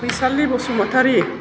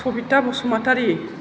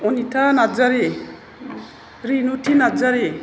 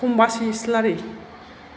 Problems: constant background noise